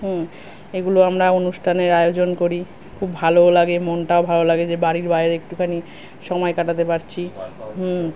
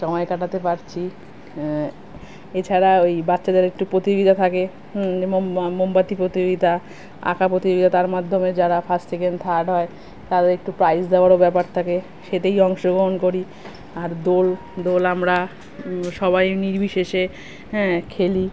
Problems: constant background noise